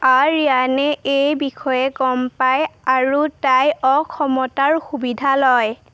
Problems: constant background noise